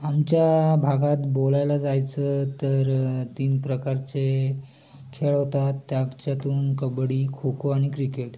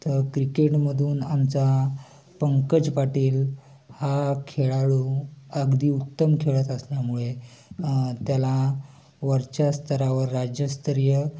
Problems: constant background noise, continuous background conversations